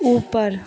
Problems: constant background noise